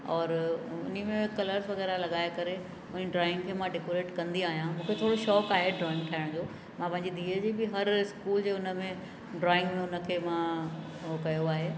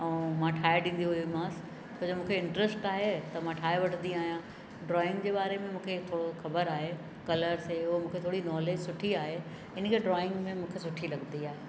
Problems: constant background noise, echo